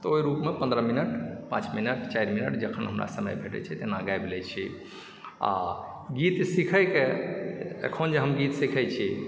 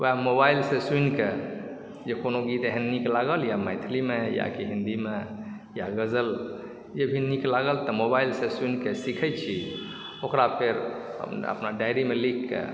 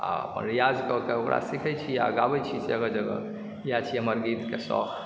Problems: background sounds at intervals